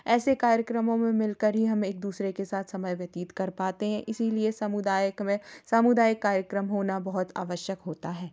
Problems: background sounds at intervals